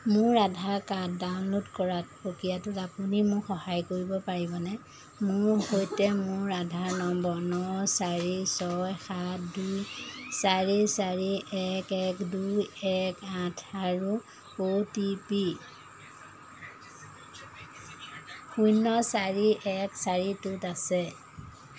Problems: constant background noise, background conversations at intervals